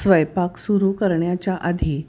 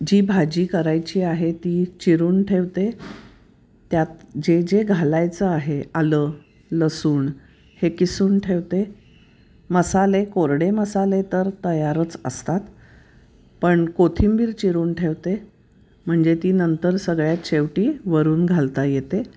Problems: none marked